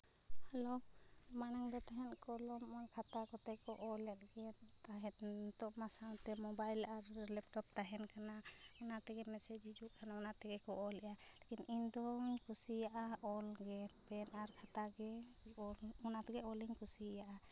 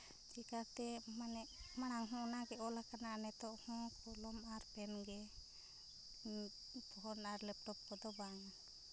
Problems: background sounds at intervals, low volume